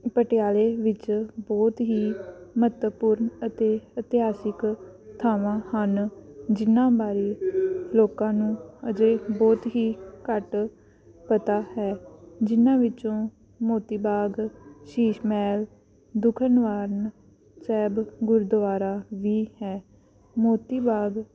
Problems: none marked